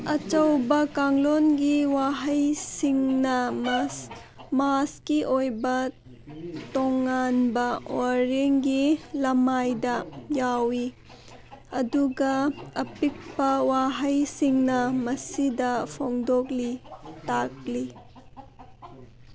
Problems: background sounds at intervals